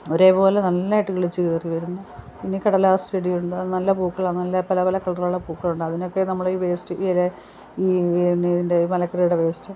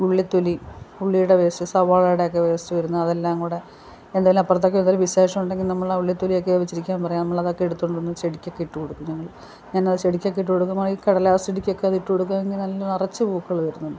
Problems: background sounds at intervals